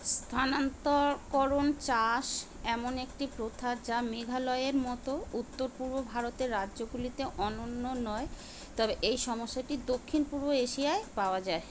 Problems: constant background noise, background conversations at intervals